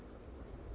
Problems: constant background noise